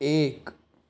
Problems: constant background noise